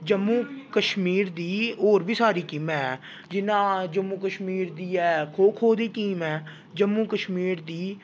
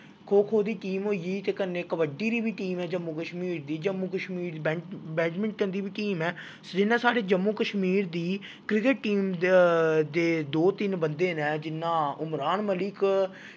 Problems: none marked